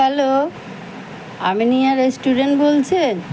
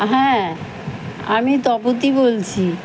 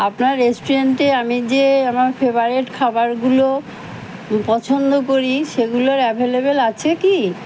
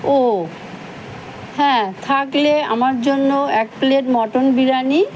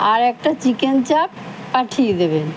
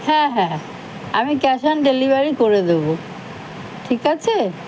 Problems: constant background noise, background conversations at intervals